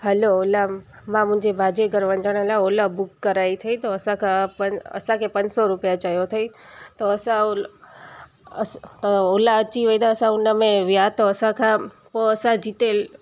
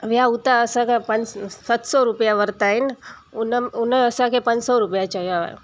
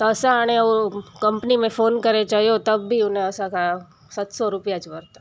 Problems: constant background noise